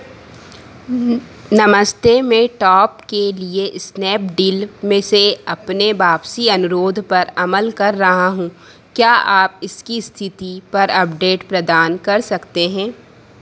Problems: constant background noise